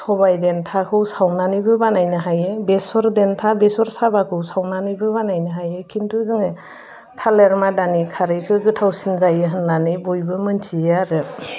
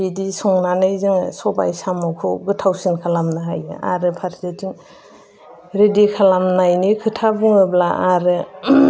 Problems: none marked